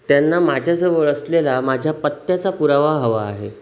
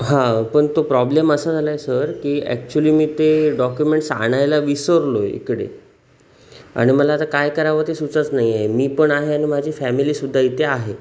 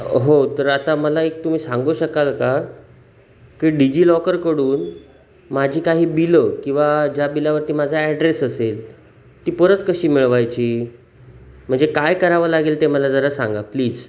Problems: none marked